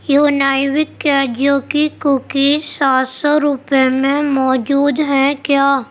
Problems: constant background noise